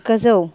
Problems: background conversations at intervals